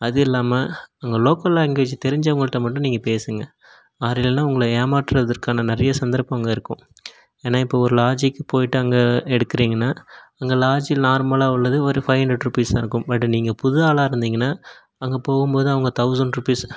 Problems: none marked